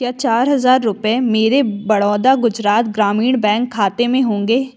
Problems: constant background noise